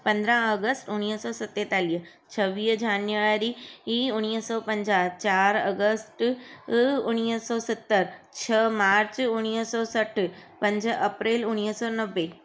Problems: constant background noise